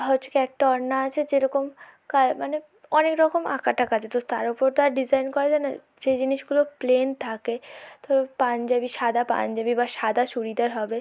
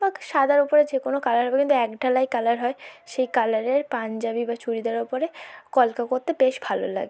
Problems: low volume